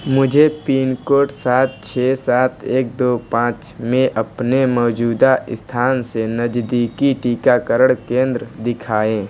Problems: background sounds at intervals